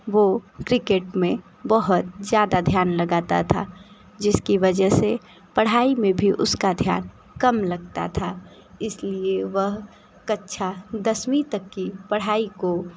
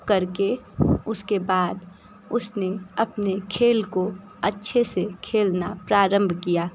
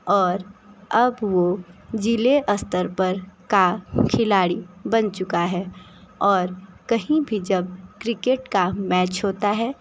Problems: constant background noise